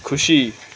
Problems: constant background noise